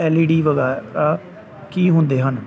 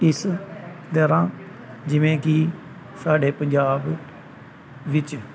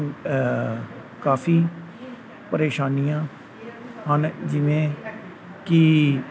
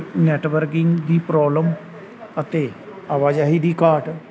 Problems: none marked